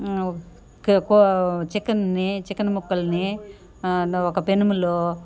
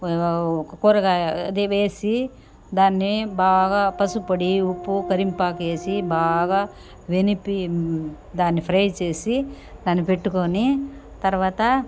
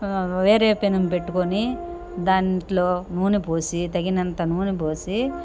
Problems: background sounds at intervals